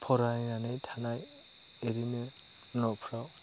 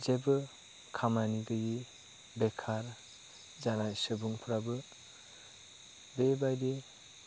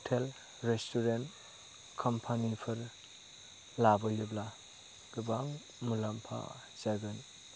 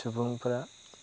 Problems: constant background noise